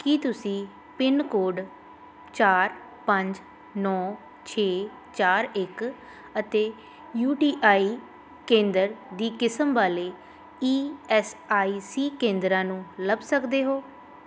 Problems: none marked